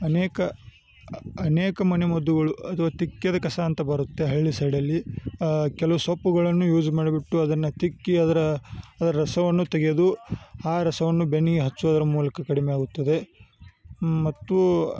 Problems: none marked